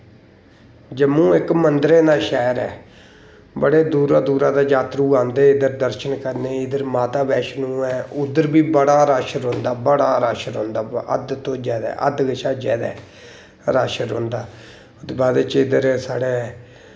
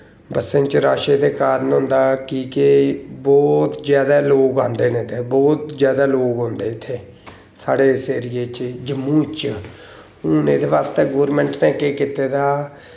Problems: none marked